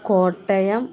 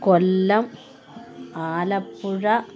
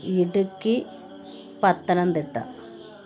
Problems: background sounds at intervals